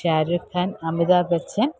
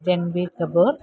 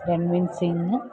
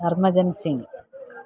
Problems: background sounds at intervals